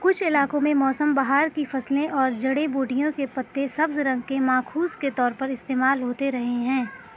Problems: constant background noise, background conversations at intervals